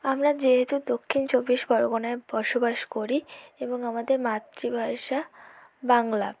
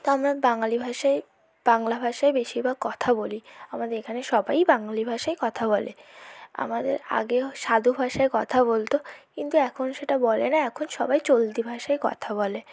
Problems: none marked